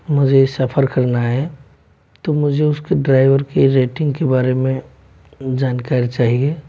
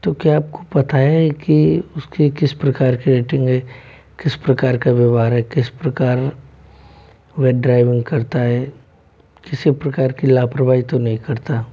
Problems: background sounds at intervals